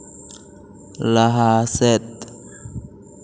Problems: constant background noise, echo